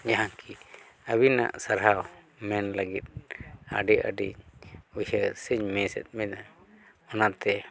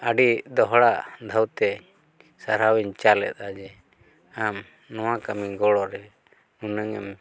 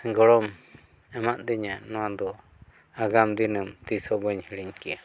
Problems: none marked